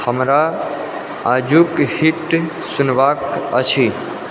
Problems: constant background noise